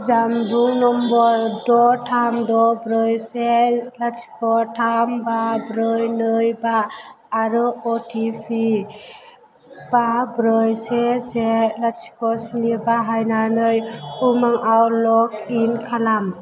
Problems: constant background noise